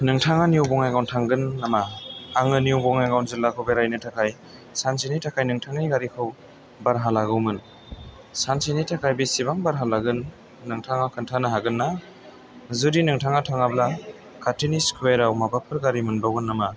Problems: background sounds at intervals